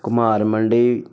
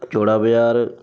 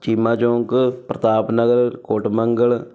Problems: background sounds at intervals